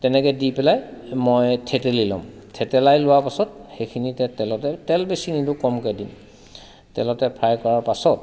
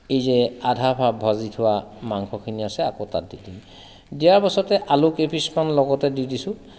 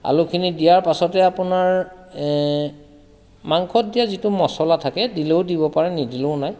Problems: constant background noise